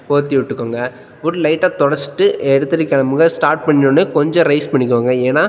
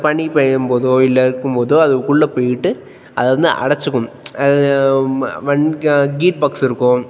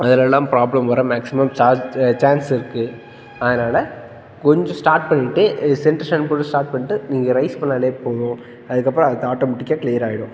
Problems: background sounds at intervals